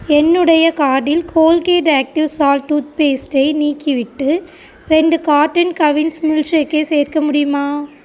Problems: constant background noise